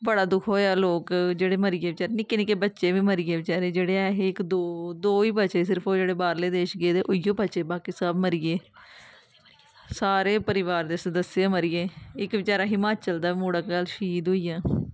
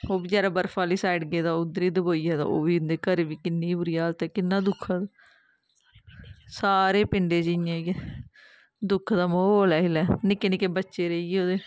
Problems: none marked